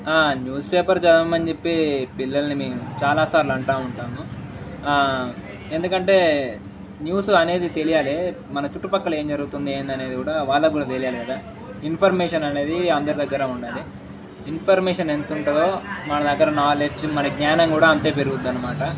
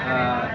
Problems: none marked